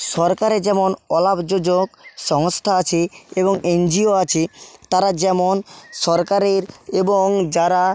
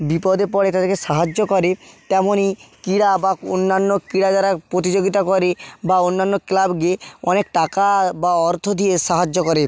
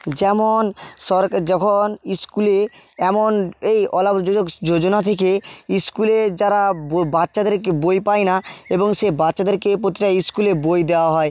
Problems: background sounds at intervals